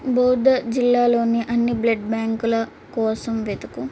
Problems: constant background noise